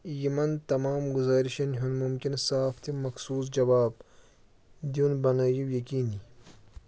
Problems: none marked